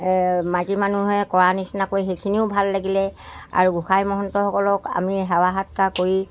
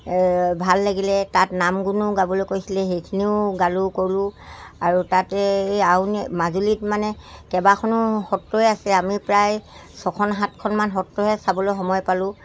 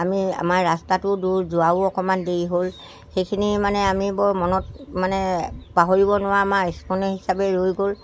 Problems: constant background noise